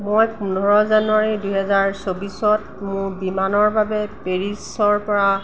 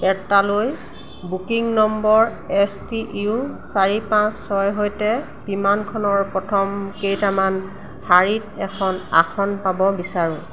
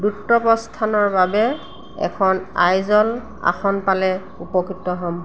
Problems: constant background noise